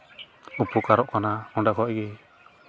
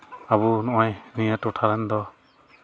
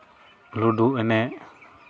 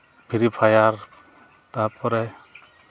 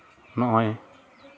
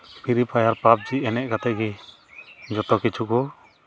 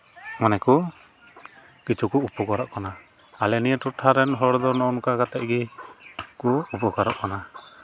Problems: constant background noise